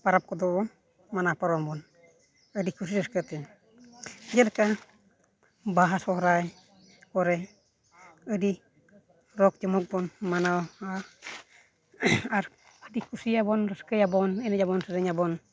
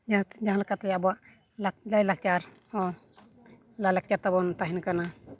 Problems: none marked